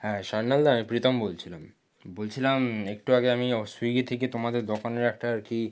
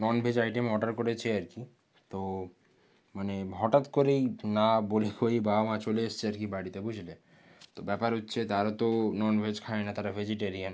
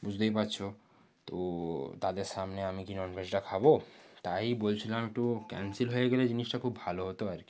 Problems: low volume